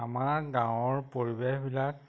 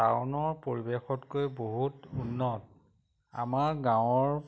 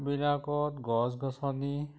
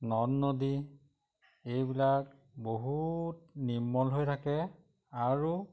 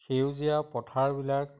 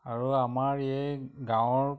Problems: none marked